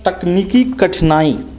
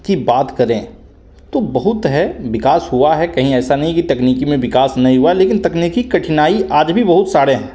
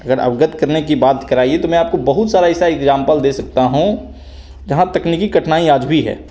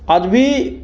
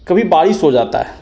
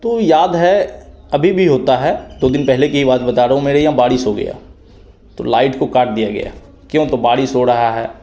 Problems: none marked